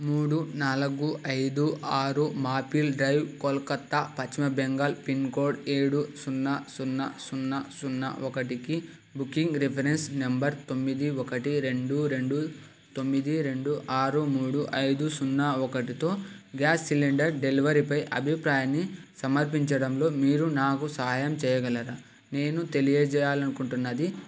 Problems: constant background noise